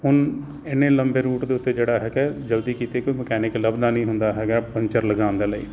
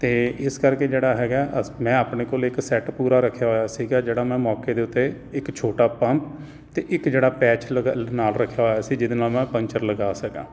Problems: none marked